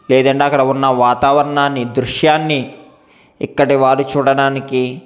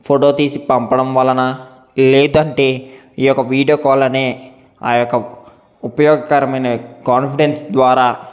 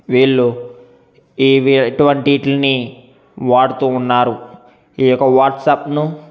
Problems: none marked